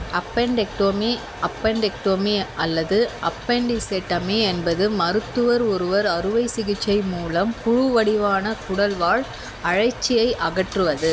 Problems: constant background noise